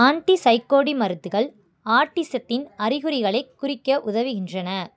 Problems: none marked